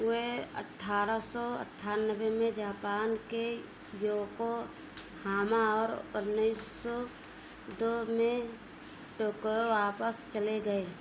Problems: background sounds at intervals